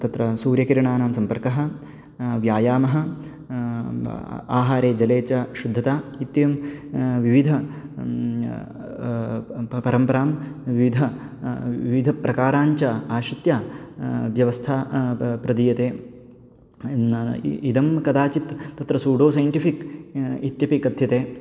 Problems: none marked